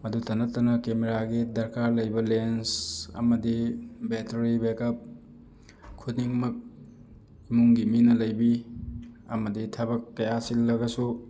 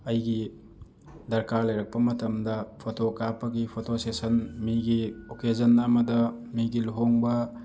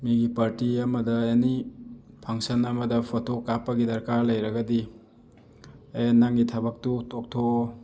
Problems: background sounds at intervals